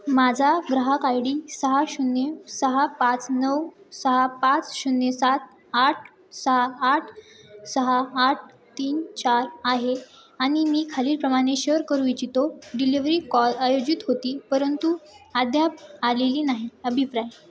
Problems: constant background noise, continuous background conversations